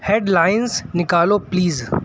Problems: constant background noise